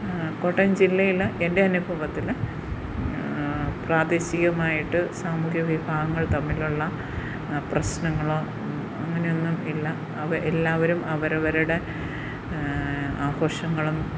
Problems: constant background noise